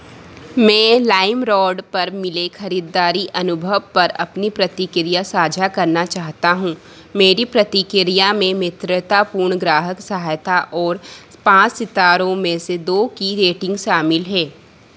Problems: constant background noise